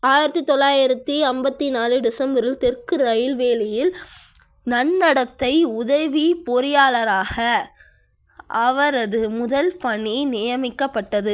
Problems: none marked